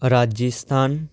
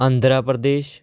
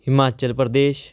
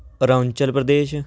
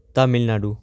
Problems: background sounds at intervals